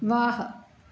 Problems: none marked